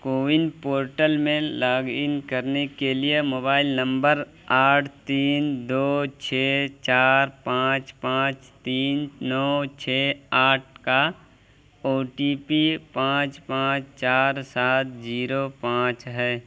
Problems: constant background noise